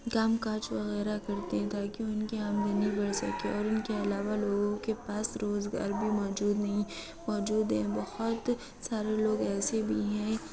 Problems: constant background noise, low volume